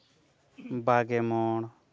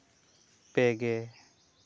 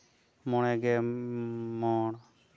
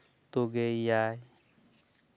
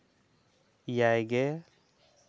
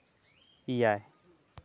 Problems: low volume